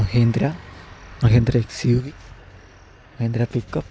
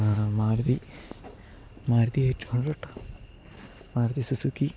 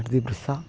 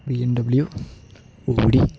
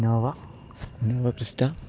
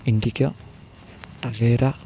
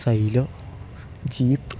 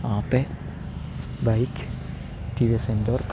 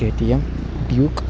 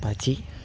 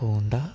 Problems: background sounds at intervals, background conversations at intervals